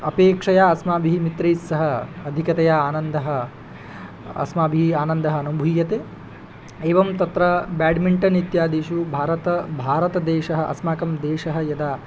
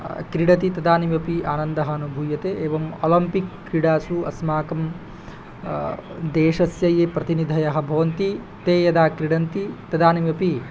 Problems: none marked